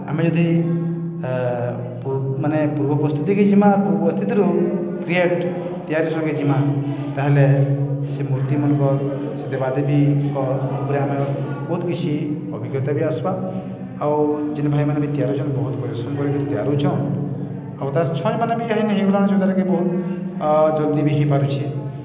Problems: constant background noise, continuous background conversations